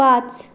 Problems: none marked